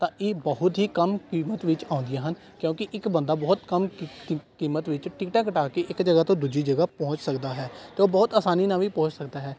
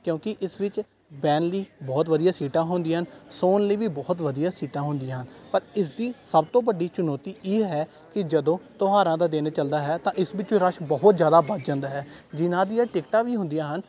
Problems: background conversations at intervals